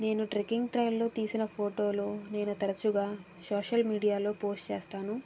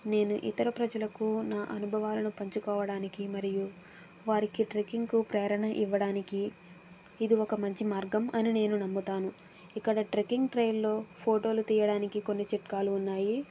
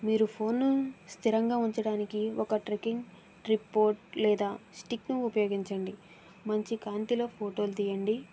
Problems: background sounds at intervals